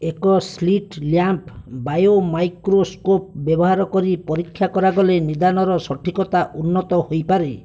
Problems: none marked